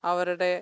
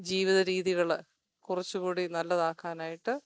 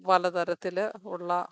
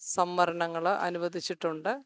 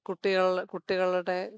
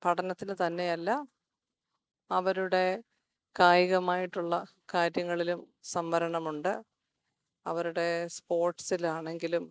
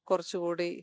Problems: none marked